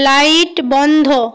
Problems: none marked